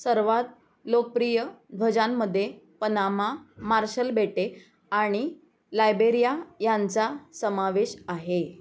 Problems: background sounds at intervals